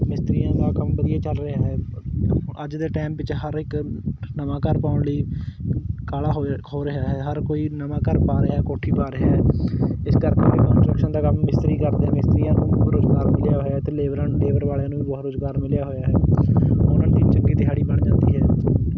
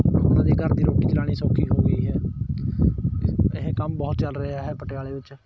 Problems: constant background noise